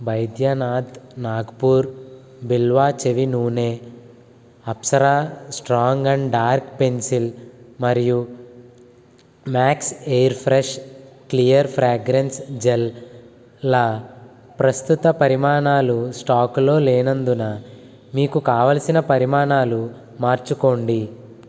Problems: none marked